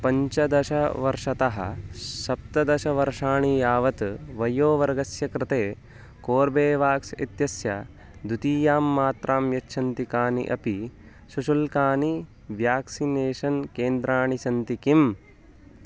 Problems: none marked